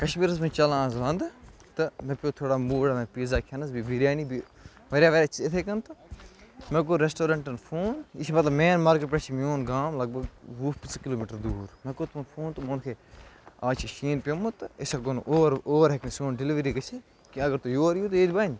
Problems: constant background noise, background conversations at intervals